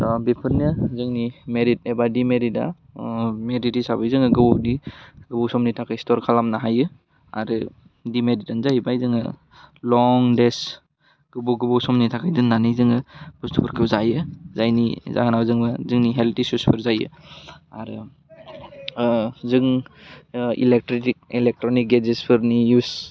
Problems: constant background noise